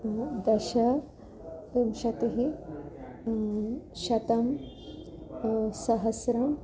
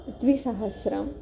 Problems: none marked